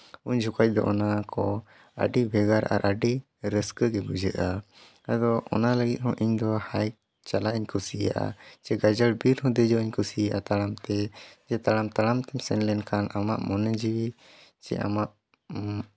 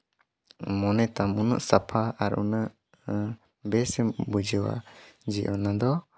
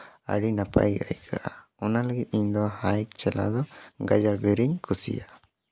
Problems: none marked